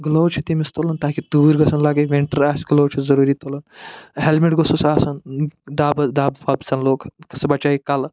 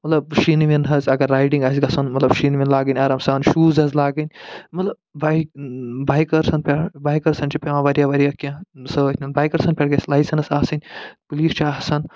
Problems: none marked